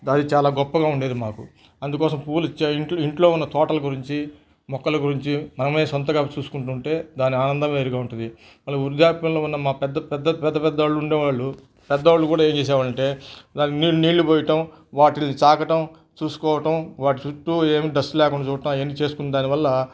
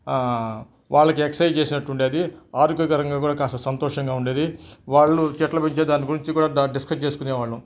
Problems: background sounds at intervals